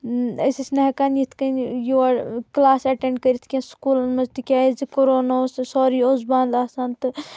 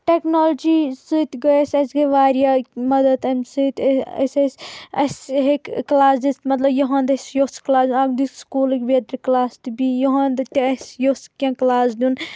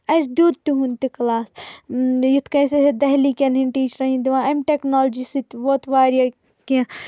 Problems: constant background noise